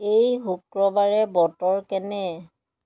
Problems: none marked